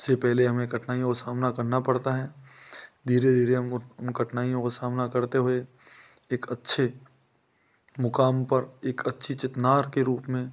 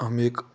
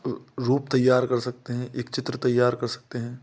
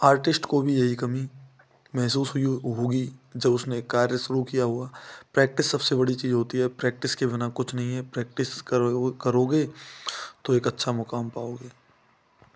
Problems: constant background noise